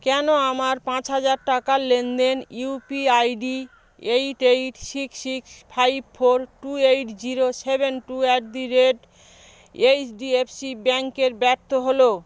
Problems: background sounds at intervals